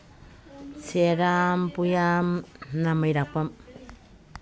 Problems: background sounds at intervals, background conversations at intervals